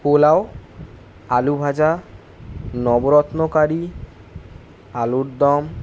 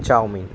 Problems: constant background noise